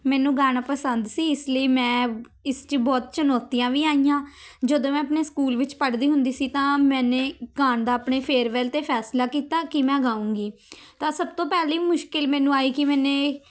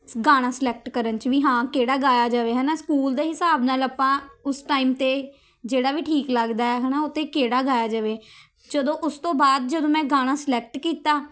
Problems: none marked